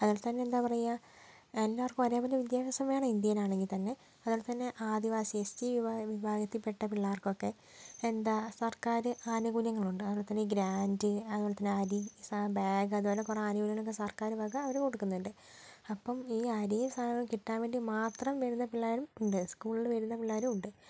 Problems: low volume